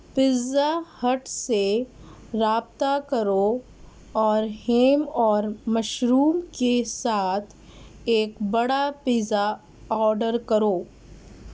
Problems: none marked